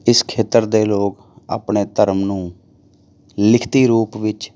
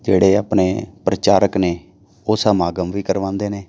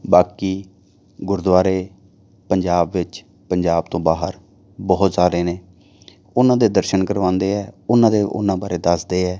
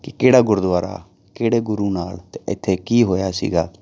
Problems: none marked